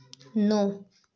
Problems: background sounds at intervals